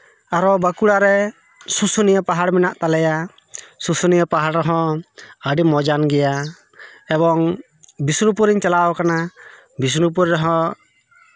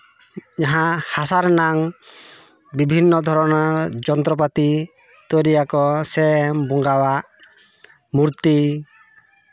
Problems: background sounds at intervals, continuous background conversations